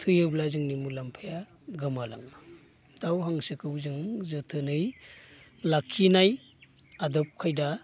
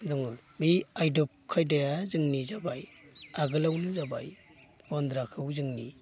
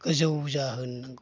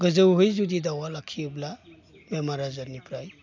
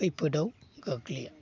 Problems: constant background noise